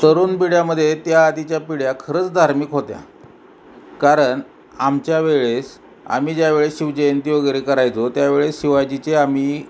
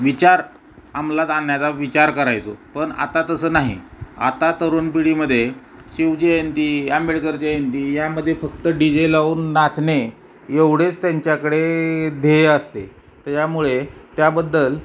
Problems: background sounds at intervals, background conversations at intervals